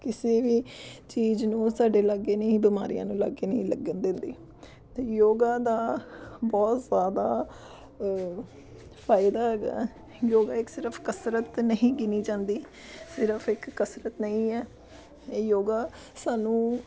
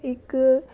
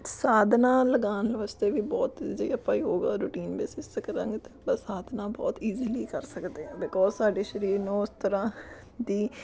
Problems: continuous background conversations